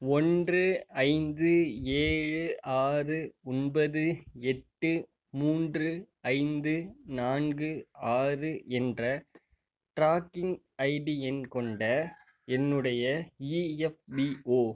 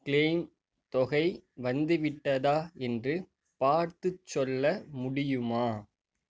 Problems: background sounds at intervals